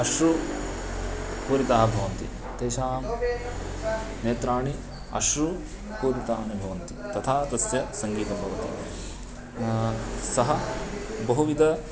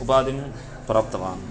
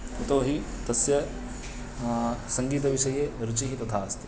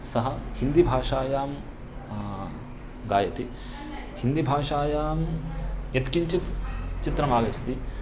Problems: constant background noise